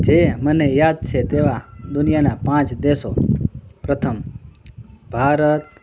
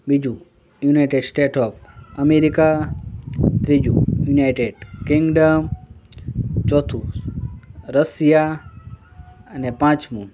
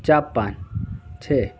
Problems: background sounds at intervals, background conversations at intervals